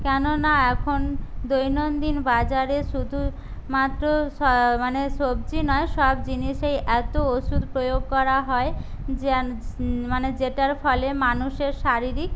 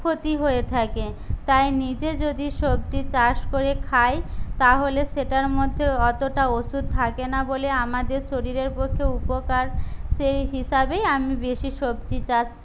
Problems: none marked